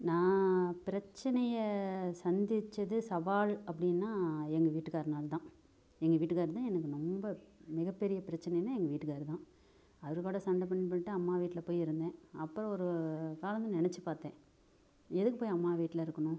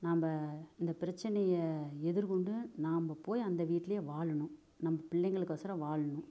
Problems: low volume